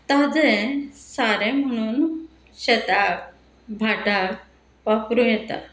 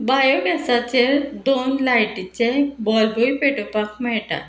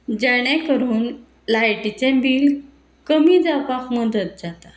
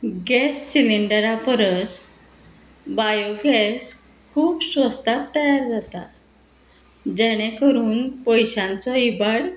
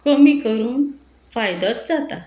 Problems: constant background noise